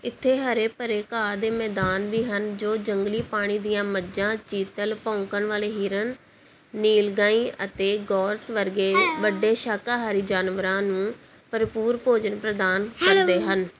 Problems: background conversations at intervals